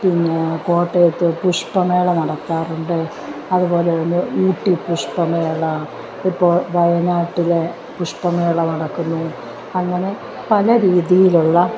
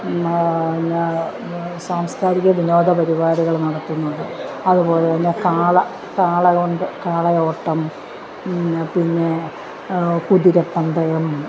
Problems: constant background noise